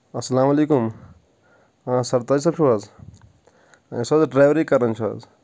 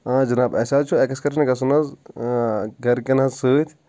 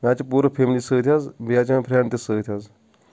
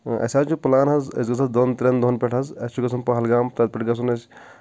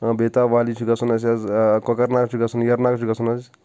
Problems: none marked